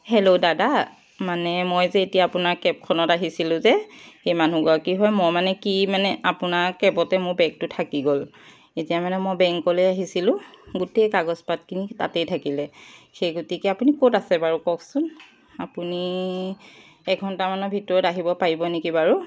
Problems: background sounds at intervals